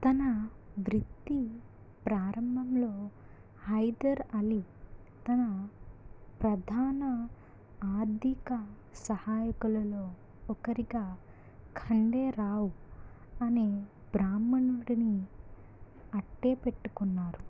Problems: low volume